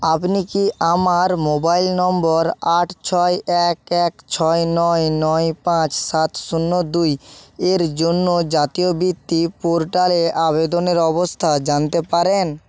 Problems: constant background noise